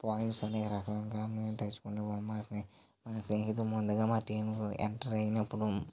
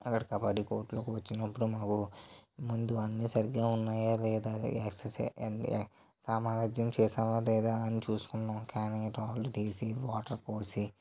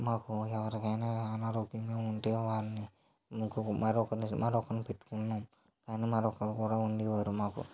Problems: low volume